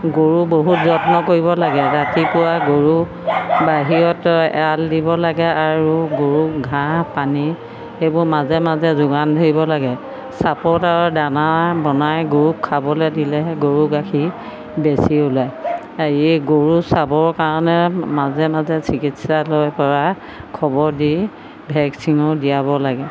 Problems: constant background noise